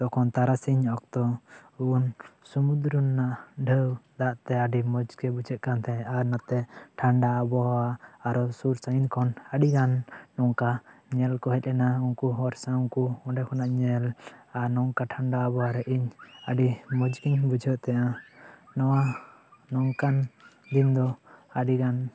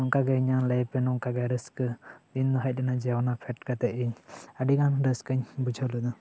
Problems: constant background noise